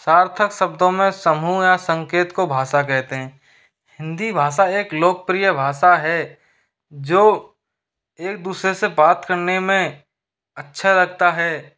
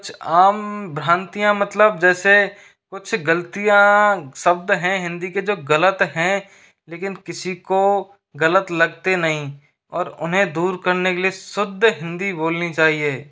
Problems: background sounds at intervals